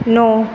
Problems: constant background noise